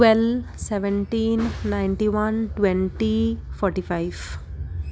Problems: none marked